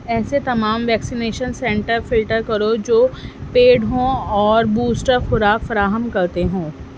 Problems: constant background noise